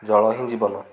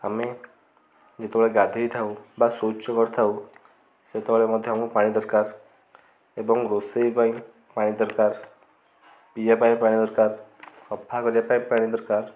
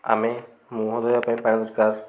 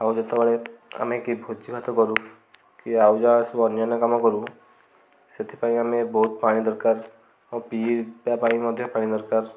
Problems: none marked